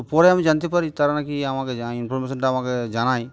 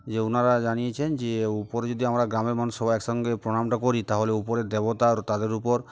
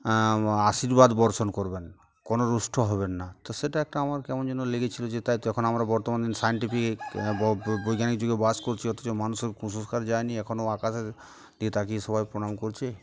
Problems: constant background noise